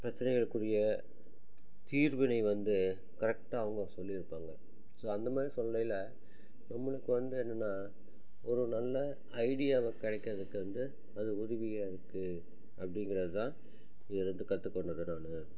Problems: low volume